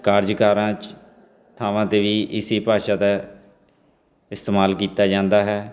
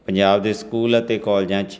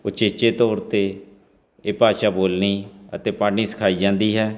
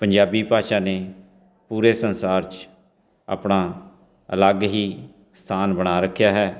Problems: constant background noise